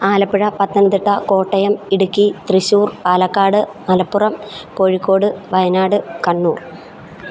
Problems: background sounds at intervals